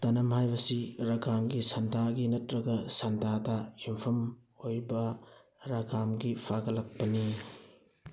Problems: background sounds at intervals